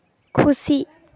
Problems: background sounds at intervals